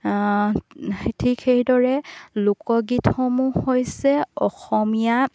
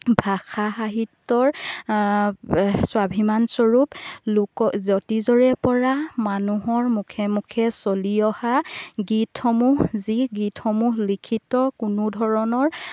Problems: background sounds at intervals